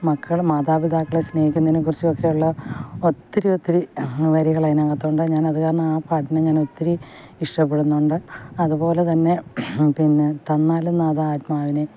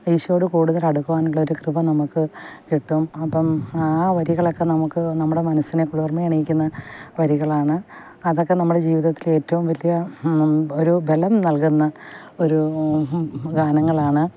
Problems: background sounds at intervals